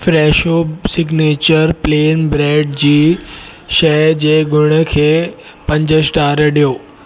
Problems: constant background noise